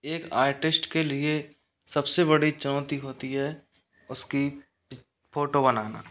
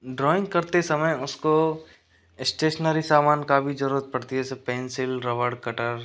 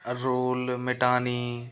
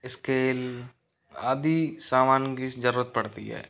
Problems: none marked